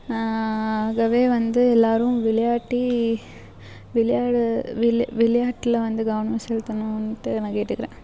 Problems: none marked